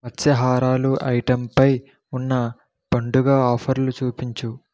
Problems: none marked